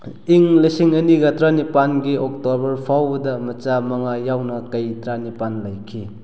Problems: none marked